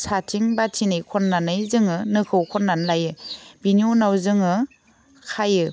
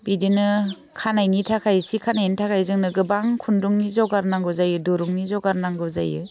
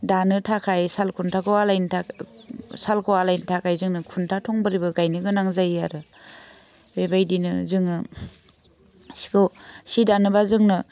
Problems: none marked